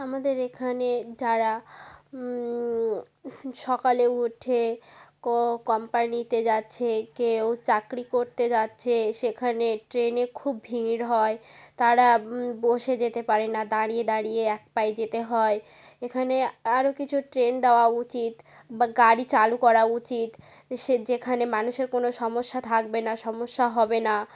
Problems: background sounds at intervals